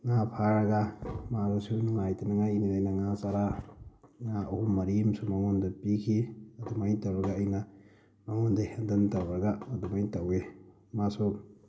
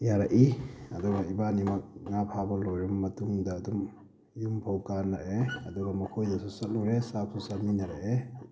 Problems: constant background noise